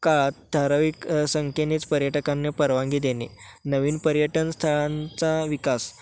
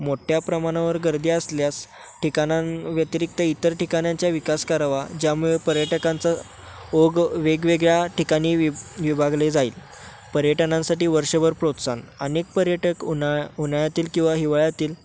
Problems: none marked